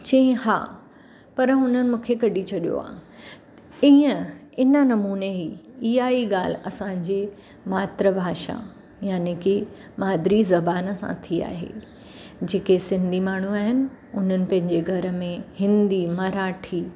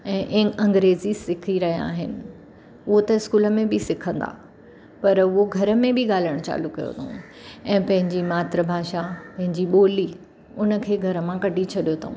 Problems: constant background noise